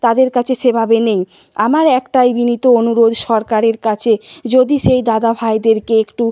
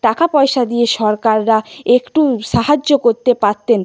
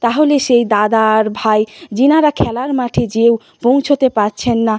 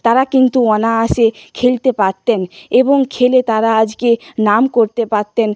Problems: constant background noise